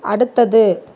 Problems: none marked